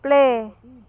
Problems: continuous background conversations